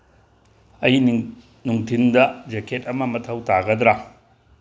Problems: background sounds at intervals